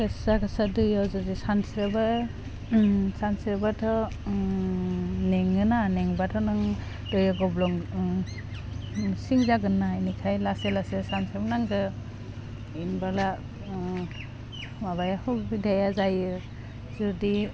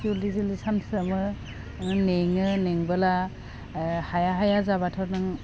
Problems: constant background noise